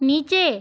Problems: none marked